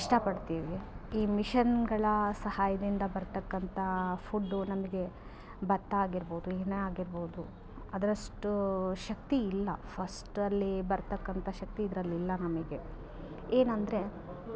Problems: none marked